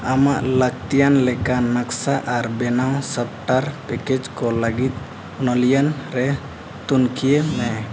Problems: constant background noise